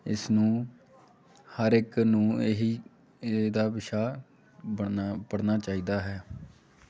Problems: constant background noise